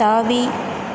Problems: constant background noise